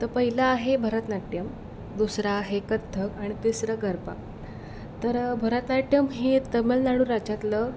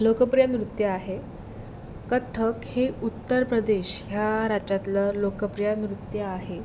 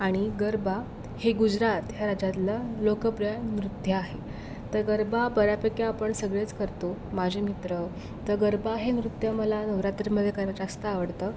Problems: background sounds at intervals